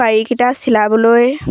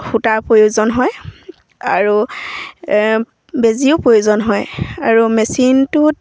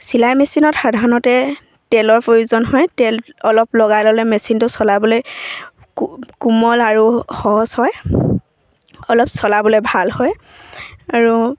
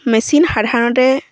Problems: none marked